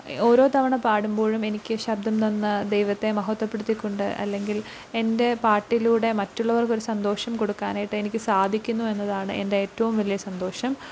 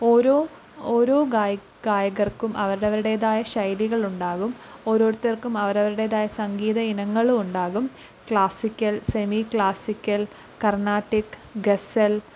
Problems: low volume